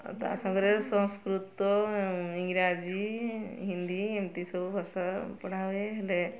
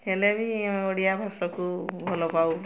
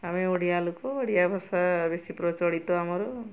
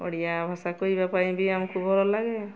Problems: constant background noise, continuous background conversations